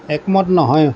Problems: constant background noise